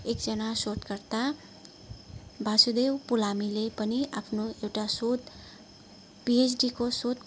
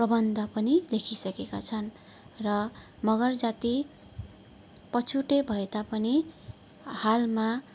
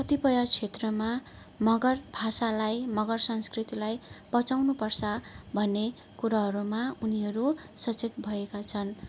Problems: constant background noise, background conversations at intervals